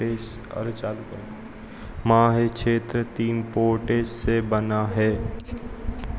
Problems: constant background noise, echo